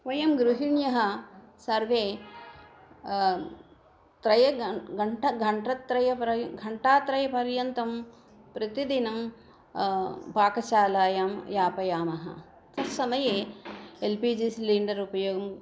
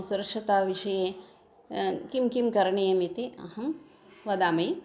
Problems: none marked